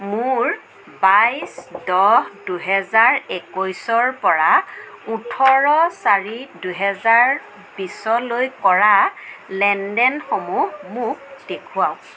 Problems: constant background noise